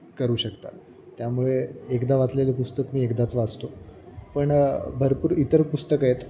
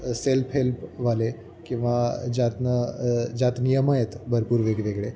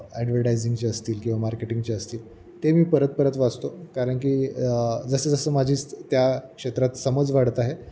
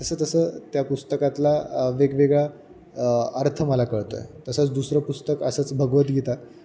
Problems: none marked